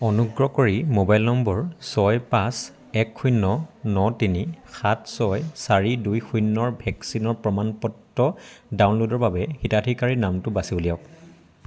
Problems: constant background noise, background conversations at intervals